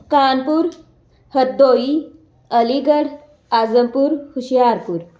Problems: none marked